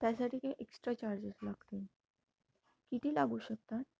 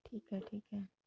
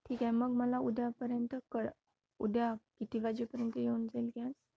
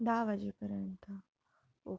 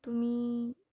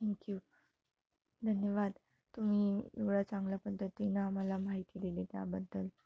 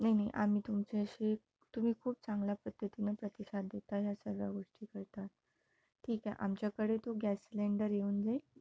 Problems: none marked